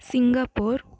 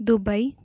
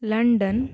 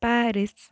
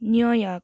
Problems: background sounds at intervals